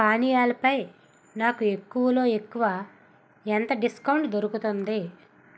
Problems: constant background noise